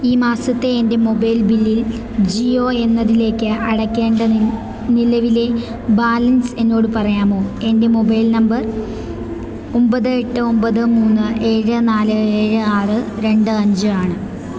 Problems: constant background noise